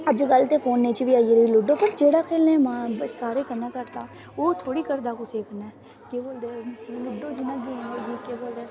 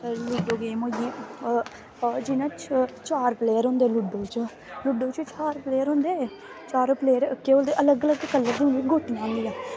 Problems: constant background noise